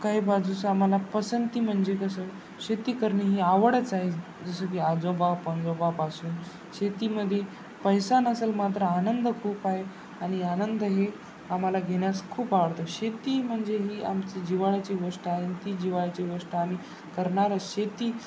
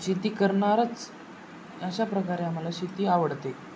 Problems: constant background noise